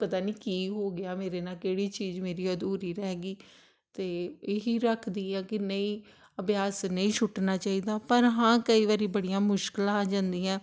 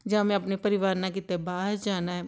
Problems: none marked